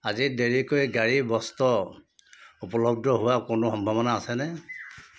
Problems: background sounds at intervals